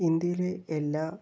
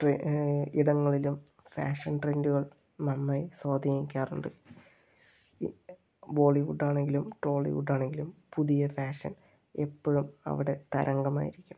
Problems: none marked